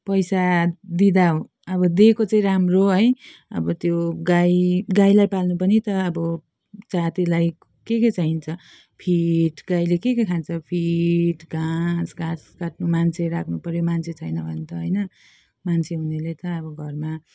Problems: none marked